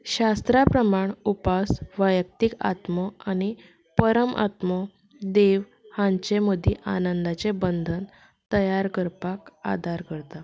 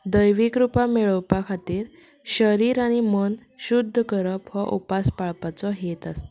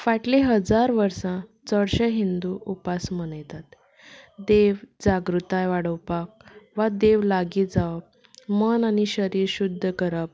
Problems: background sounds at intervals